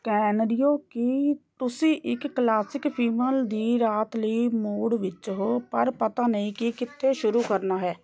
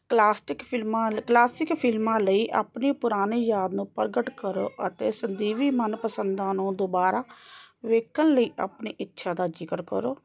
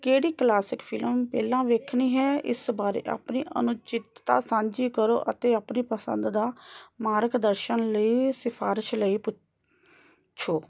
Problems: background conversations at intervals